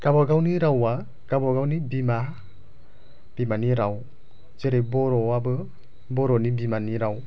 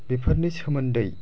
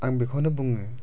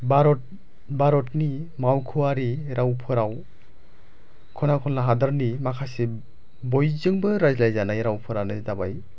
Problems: low volume